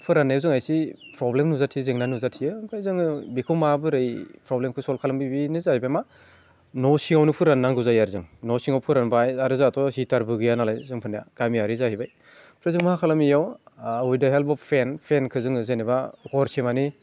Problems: none marked